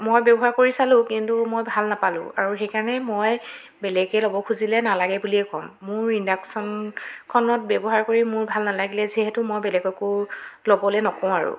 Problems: background sounds at intervals, continuous background conversations